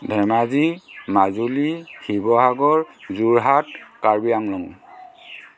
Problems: constant background noise, continuous background conversations